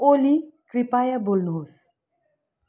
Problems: none marked